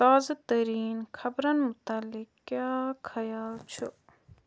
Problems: none marked